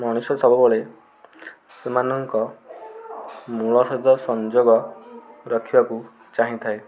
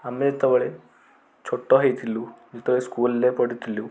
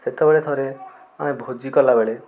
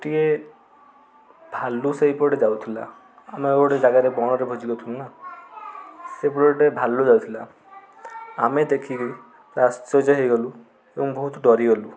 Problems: constant background noise, continuous background conversations